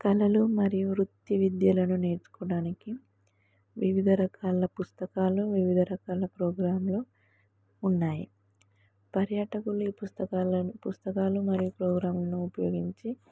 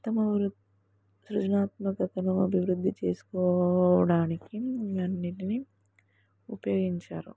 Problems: none marked